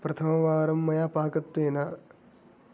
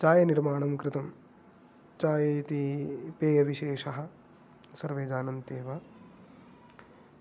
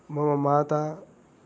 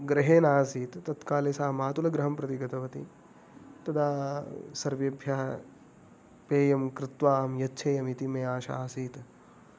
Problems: background sounds at intervals